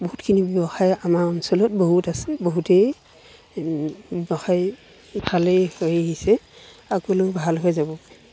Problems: background sounds at intervals